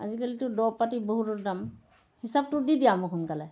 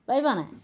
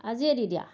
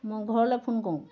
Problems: background sounds at intervals